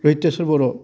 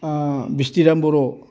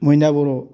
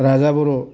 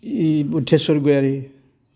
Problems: none marked